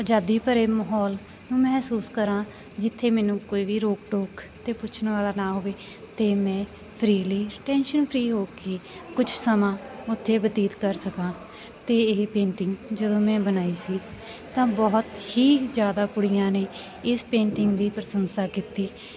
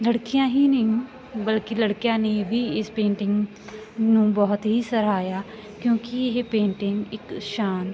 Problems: continuous background conversations